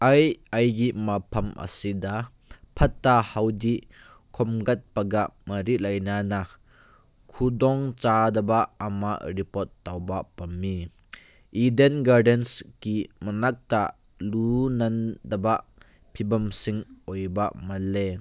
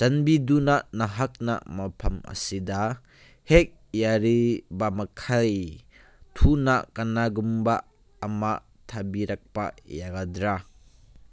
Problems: none marked